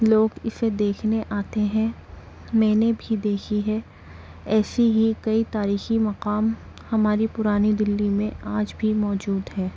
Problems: constant background noise, low volume